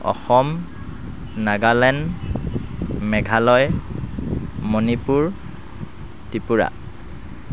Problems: constant background noise